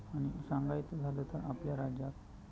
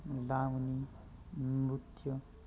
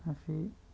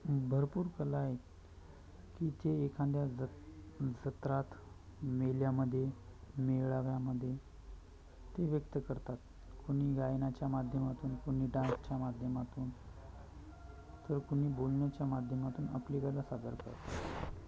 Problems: constant background noise, continuous background conversations